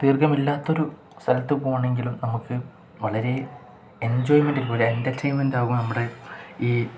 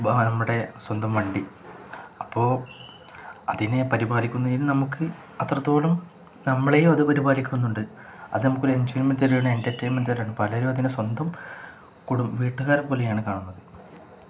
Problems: none marked